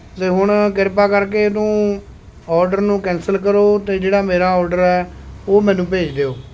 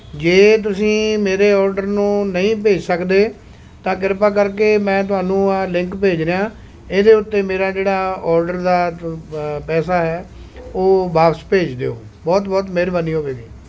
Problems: constant background noise